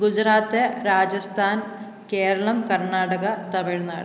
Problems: none marked